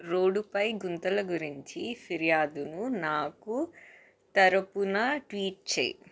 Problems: none marked